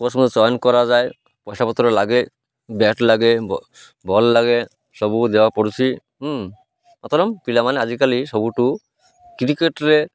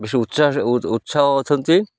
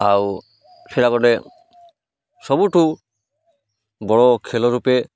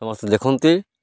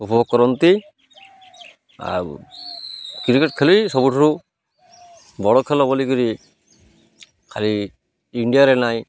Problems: none marked